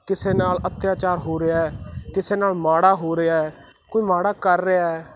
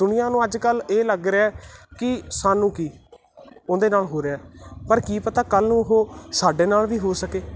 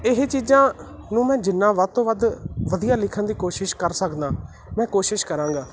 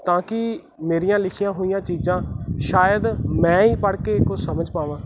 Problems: none marked